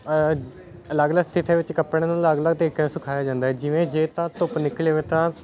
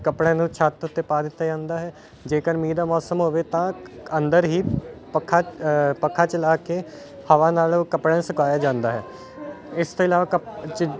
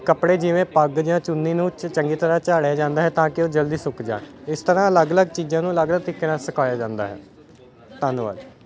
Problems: constant background noise